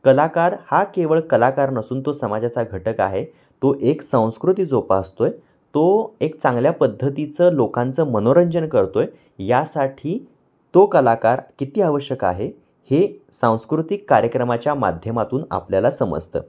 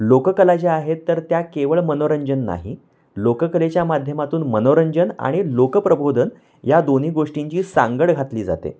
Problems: constant background noise